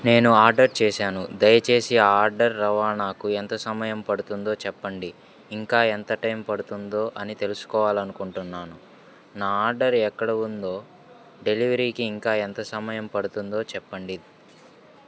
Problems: none marked